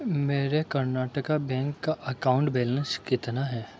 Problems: background sounds at intervals, low volume